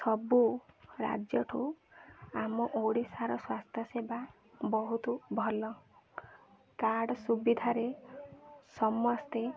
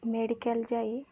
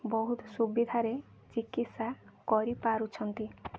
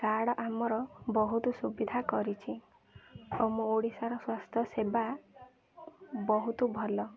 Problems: constant background noise, continuous background conversations